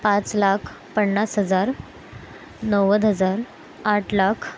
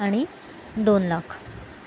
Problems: constant background noise